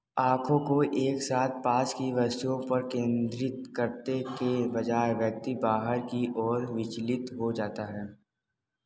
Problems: background sounds at intervals